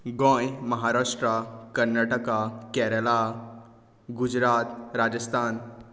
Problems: none marked